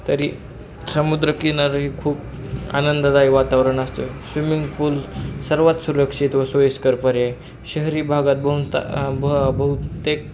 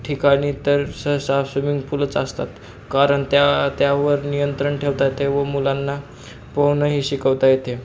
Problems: constant background noise, continuous background conversations